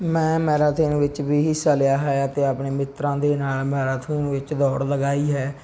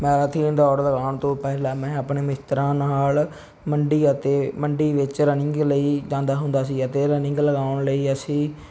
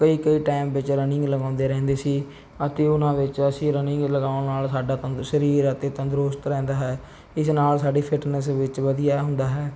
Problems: background sounds at intervals